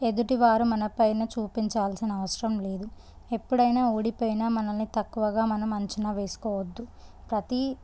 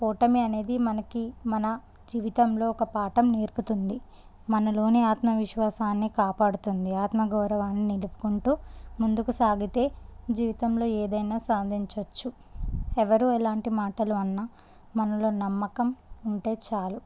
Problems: none marked